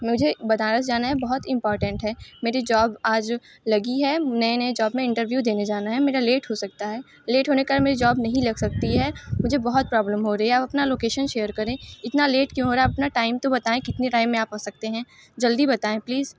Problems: constant background noise